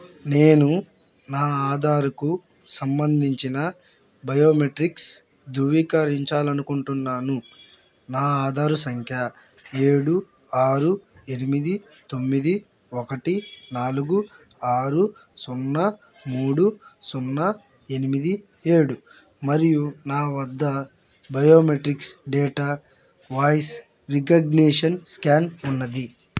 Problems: constant background noise